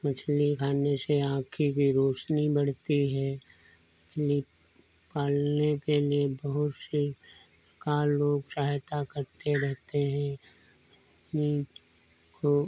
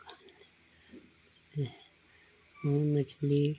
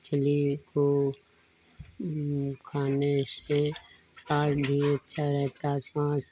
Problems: low volume